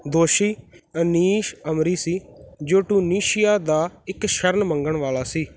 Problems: none marked